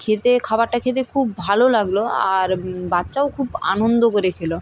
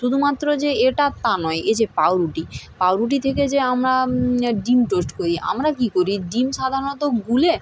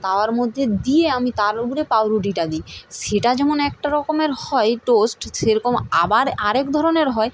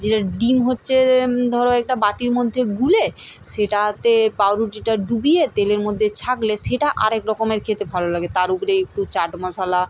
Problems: none marked